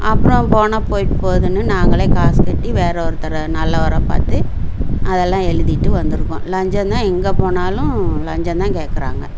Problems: low volume